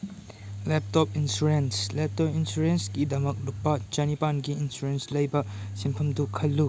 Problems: background sounds at intervals